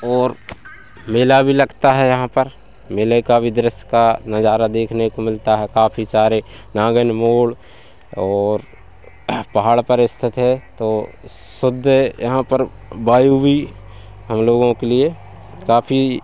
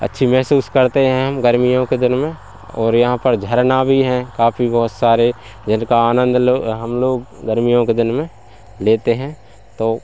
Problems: none marked